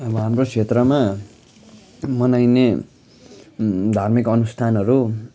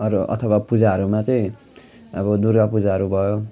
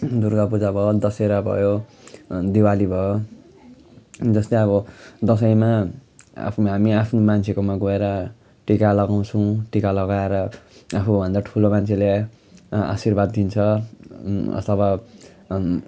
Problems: background sounds at intervals, continuous background conversations